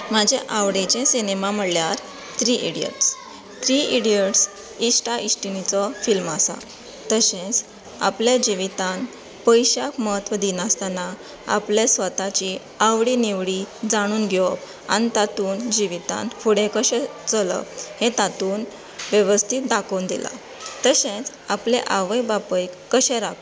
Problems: none marked